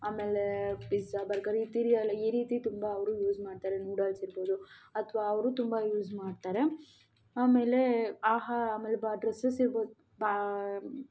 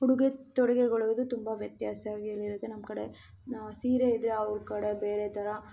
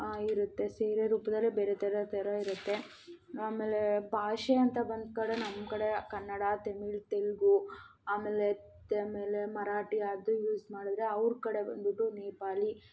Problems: none marked